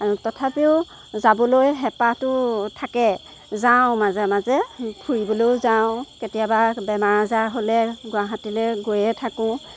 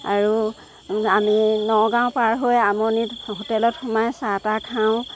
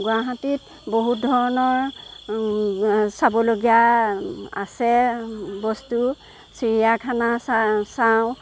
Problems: background sounds at intervals